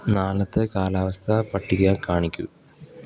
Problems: none marked